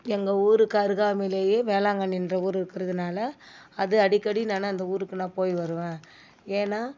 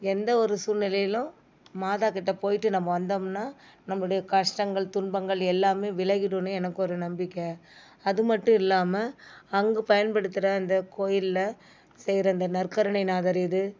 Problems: background sounds at intervals